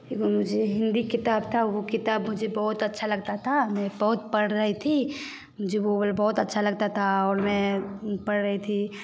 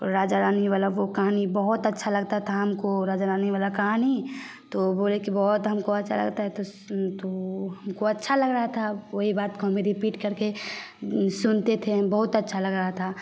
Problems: constant background noise